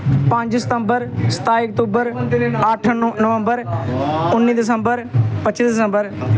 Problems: background sounds at intervals